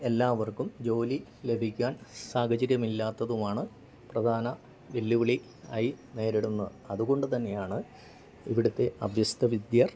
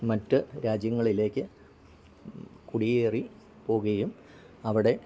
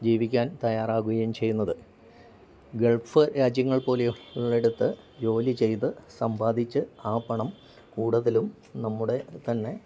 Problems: constant background noise